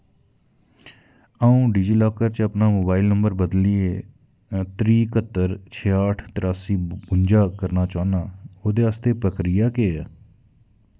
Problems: none marked